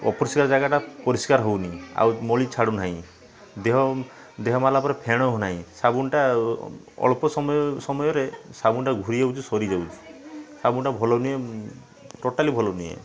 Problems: constant background noise, continuous background conversations